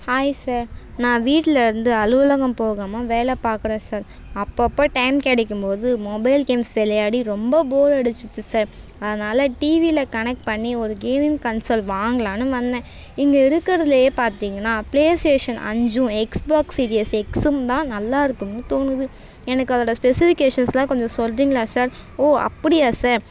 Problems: none marked